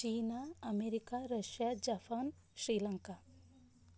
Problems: low volume